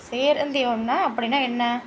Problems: constant background noise